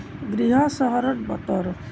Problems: none marked